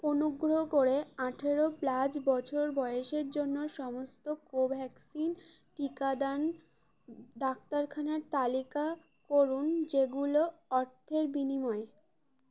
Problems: constant background noise